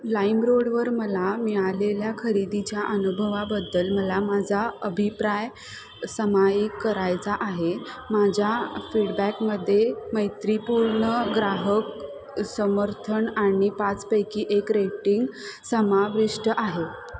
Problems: constant background noise, background conversations at intervals